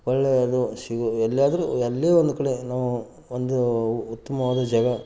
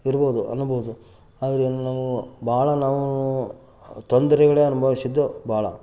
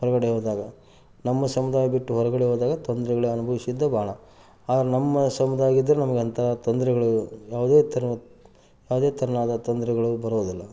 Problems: background sounds at intervals